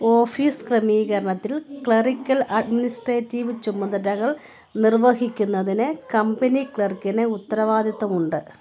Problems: constant background noise, continuous background conversations